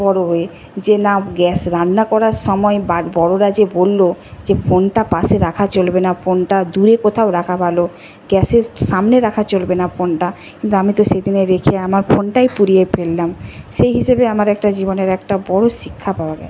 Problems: none marked